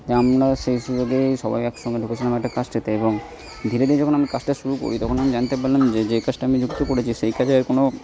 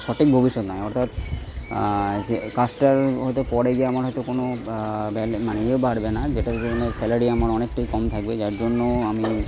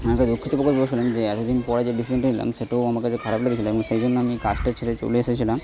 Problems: background sounds at intervals, background conversations at intervals